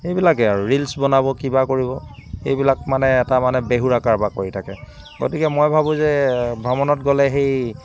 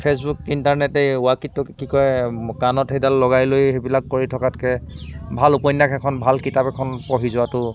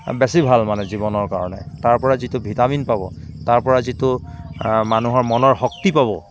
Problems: constant background noise, background conversations at intervals